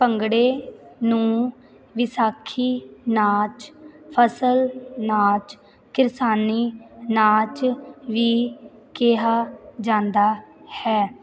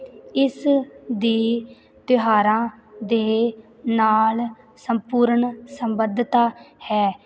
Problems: none marked